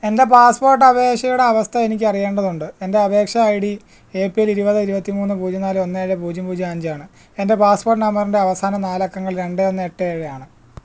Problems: none marked